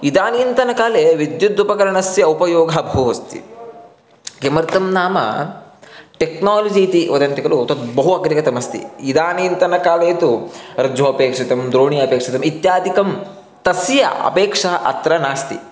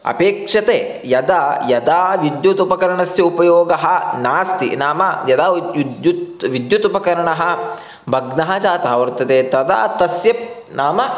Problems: constant background noise